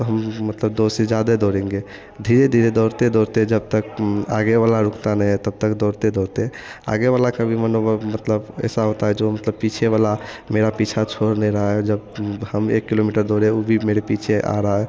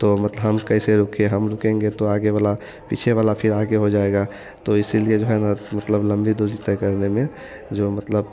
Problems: constant background noise